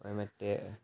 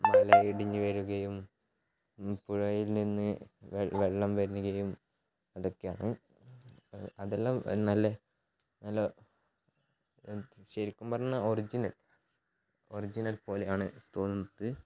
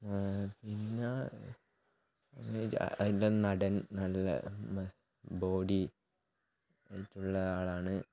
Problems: background sounds at intervals, low volume